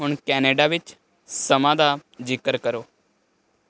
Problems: constant background noise